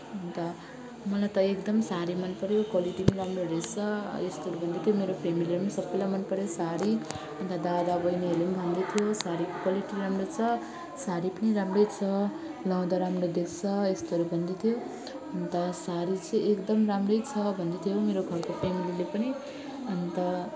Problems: constant background noise, continuous background conversations